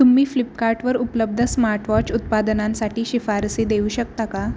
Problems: constant background noise